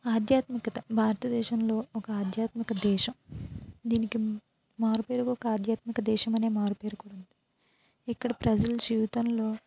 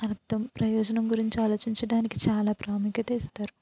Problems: none marked